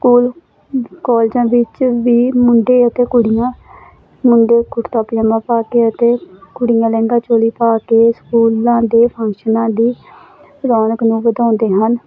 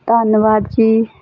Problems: constant background noise